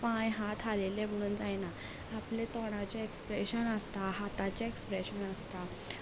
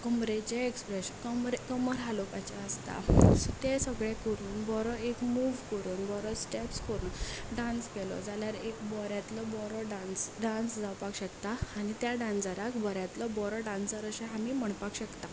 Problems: background sounds at intervals